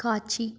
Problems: none marked